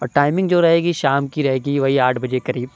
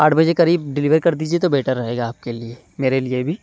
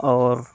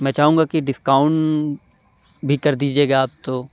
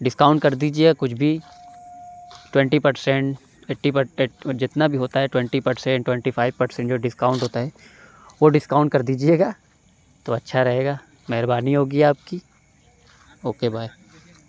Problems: none marked